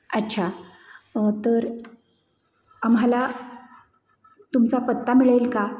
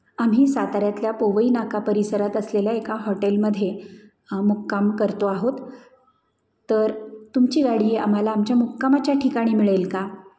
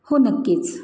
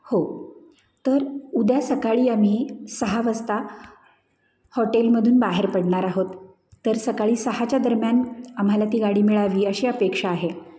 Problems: background sounds at intervals, echo